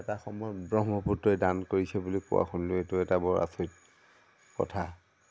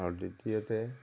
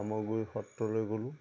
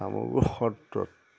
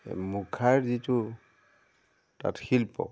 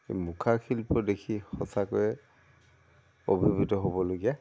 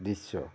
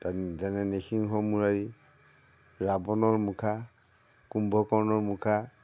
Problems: none marked